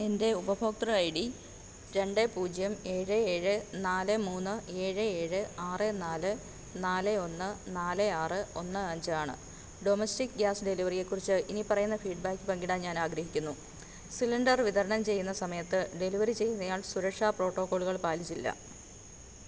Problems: none marked